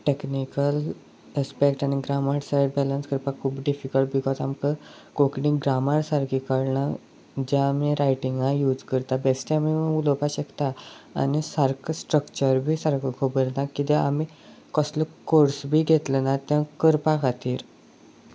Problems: none marked